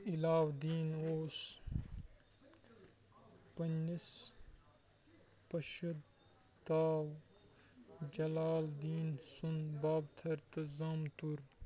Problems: background sounds at intervals, low volume